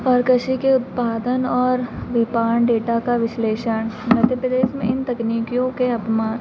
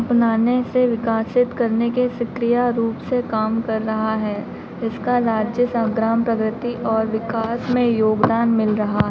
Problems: constant background noise